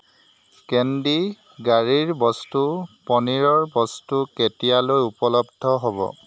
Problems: constant background noise